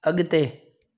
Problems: none marked